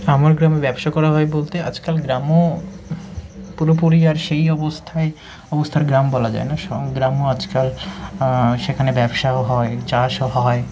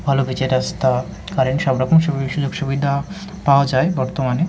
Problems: constant background noise